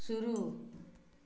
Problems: background sounds at intervals